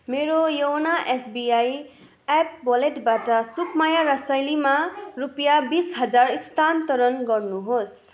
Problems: none marked